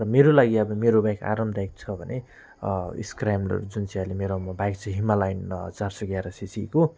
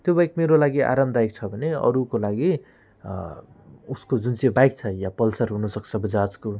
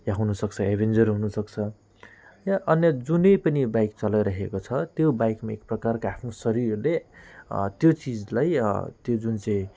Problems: none marked